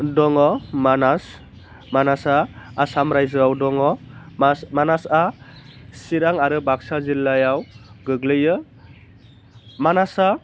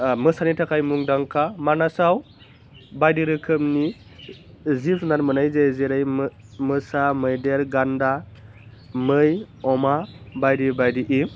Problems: none marked